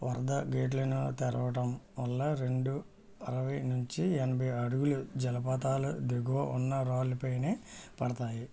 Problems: low volume